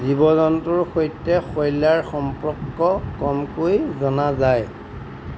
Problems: none marked